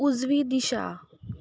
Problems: background sounds at intervals